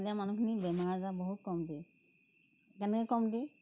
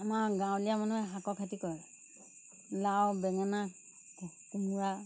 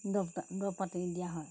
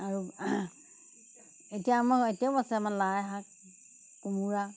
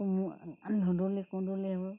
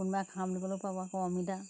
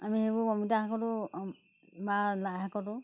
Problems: constant background noise